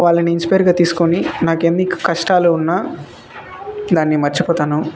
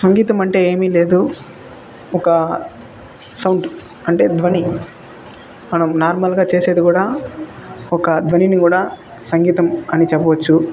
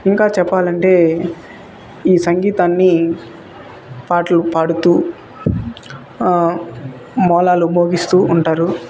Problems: constant background noise, continuous background conversations